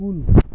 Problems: constant background noise, low volume